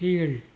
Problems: none marked